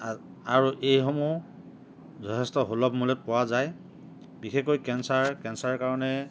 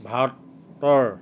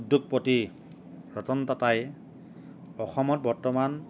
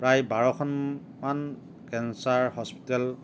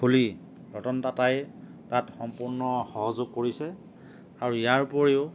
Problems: none marked